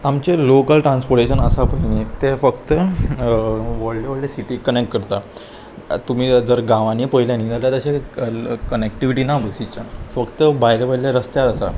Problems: constant background noise